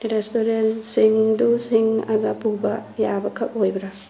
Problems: background sounds at intervals